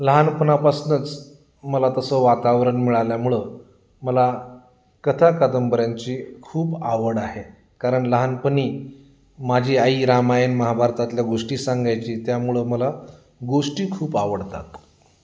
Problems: none marked